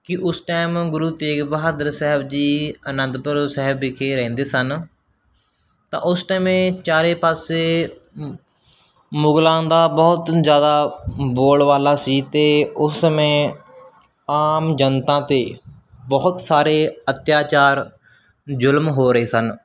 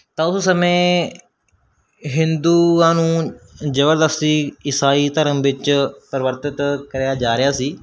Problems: none marked